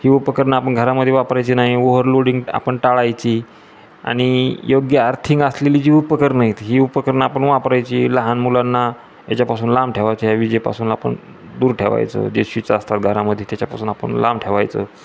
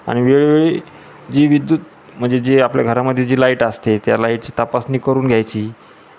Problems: constant background noise